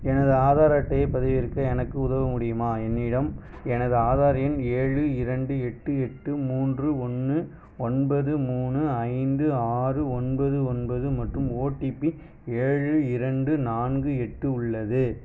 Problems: none marked